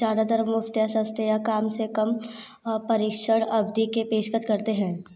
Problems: constant background noise